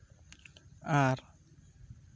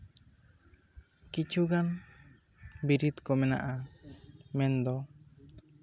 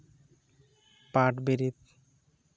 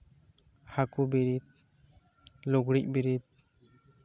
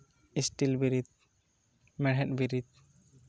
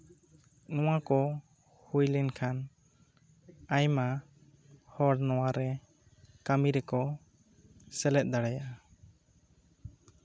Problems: low volume